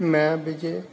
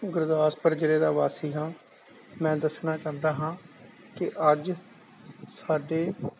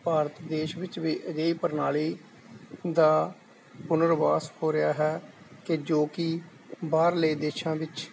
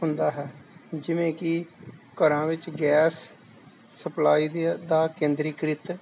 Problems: none marked